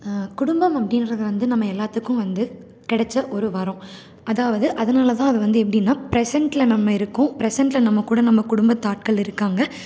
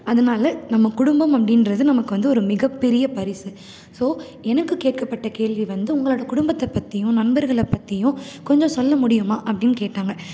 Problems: none marked